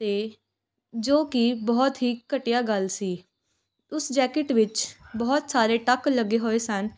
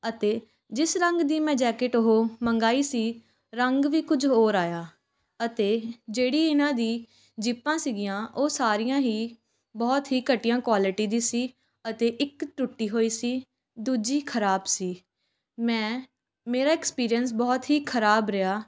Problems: background sounds at intervals, continuous background conversations